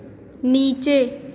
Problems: constant background noise, echo